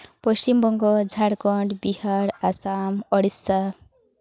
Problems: background sounds at intervals